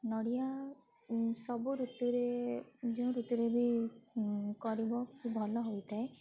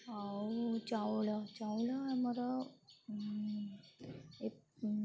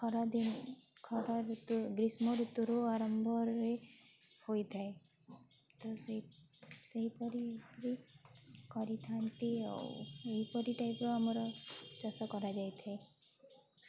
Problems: constant background noise